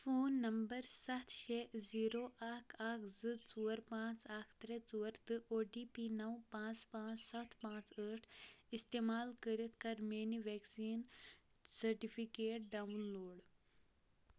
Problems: low volume